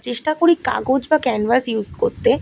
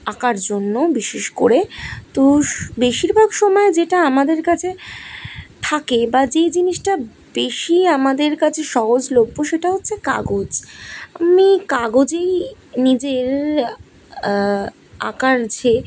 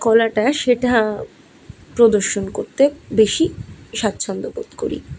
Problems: none marked